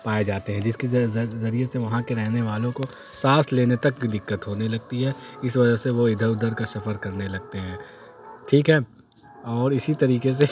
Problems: constant background noise